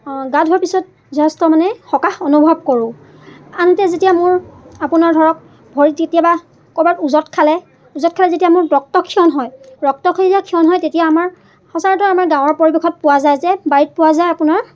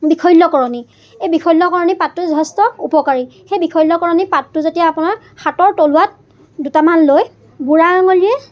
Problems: constant background noise, background conversations at intervals